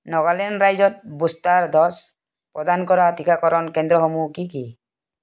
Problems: none marked